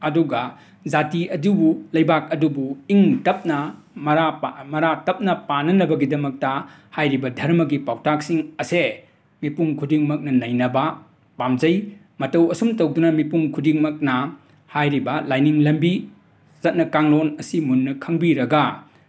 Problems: background sounds at intervals